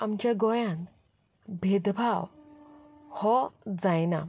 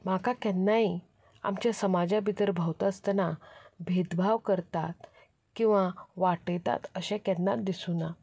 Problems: background sounds at intervals